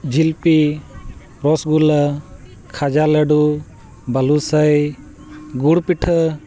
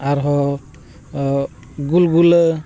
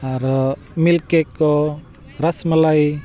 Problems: constant background noise, continuous background conversations